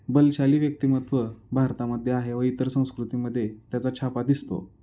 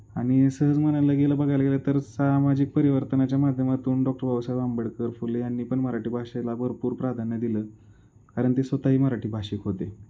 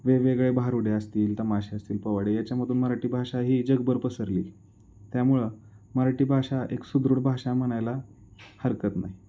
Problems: background sounds at intervals